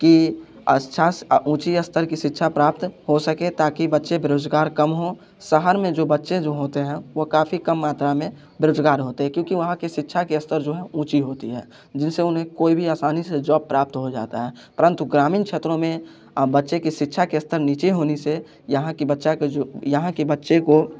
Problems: constant background noise